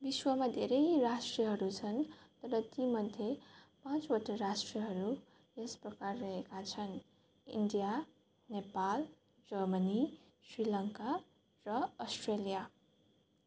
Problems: none marked